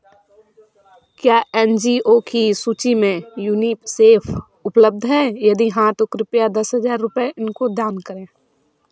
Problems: background sounds at intervals